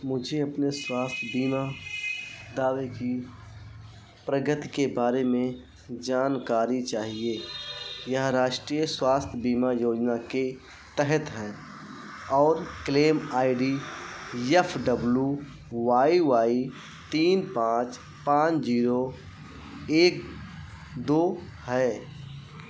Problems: constant background noise